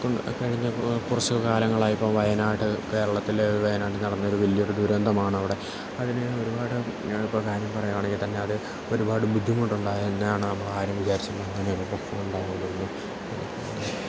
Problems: constant background noise, low volume